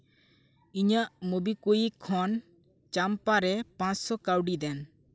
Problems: none marked